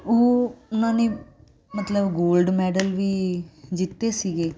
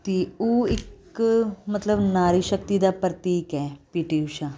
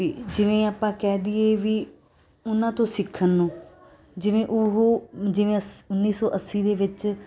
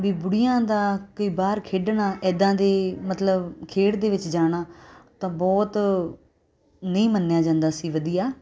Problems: constant background noise